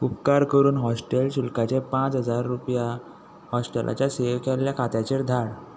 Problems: constant background noise